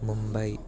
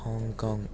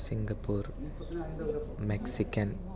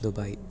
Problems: background conversations at intervals